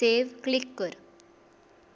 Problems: constant background noise